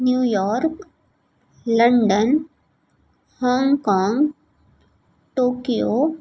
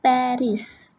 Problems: none marked